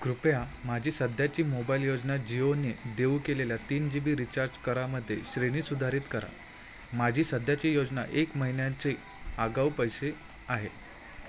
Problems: none marked